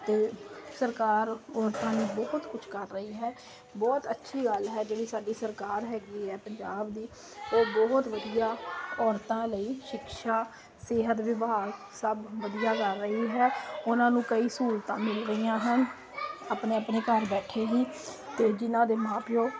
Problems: constant background noise